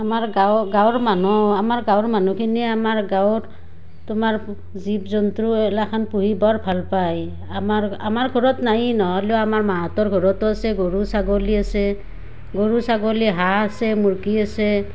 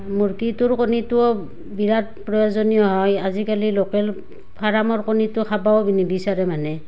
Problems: background sounds at intervals